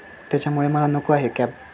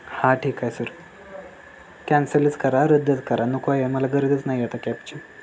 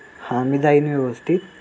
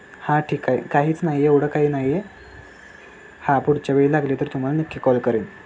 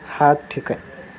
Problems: constant background noise